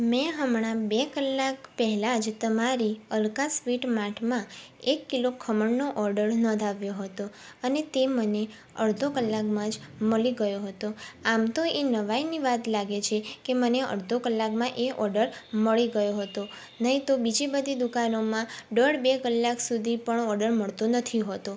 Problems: background sounds at intervals